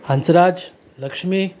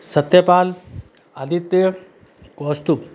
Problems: constant background noise